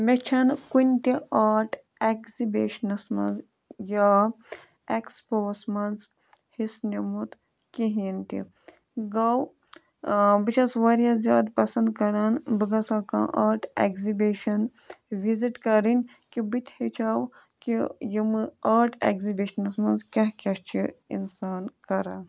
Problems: none marked